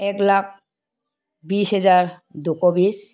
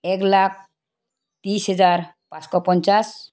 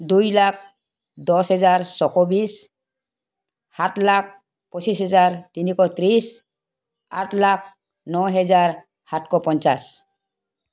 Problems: background sounds at intervals